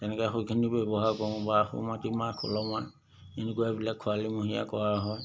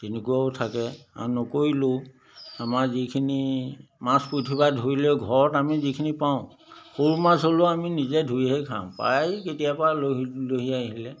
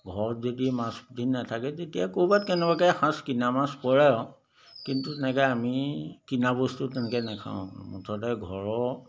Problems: background sounds at intervals